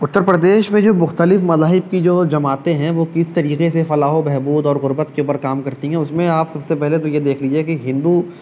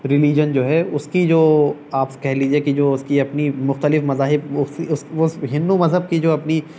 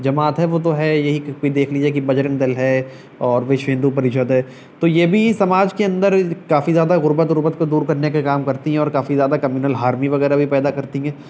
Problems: none marked